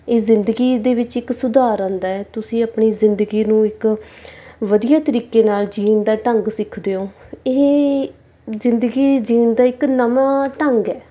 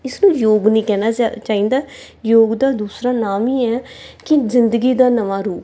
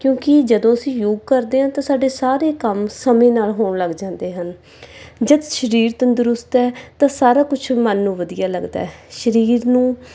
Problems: background sounds at intervals